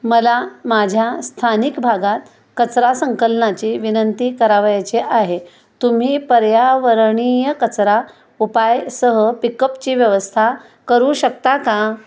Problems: constant background noise, echo